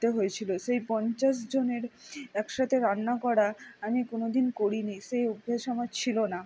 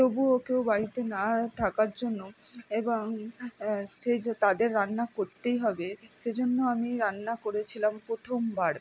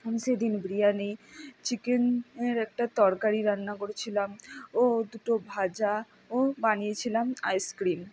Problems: none marked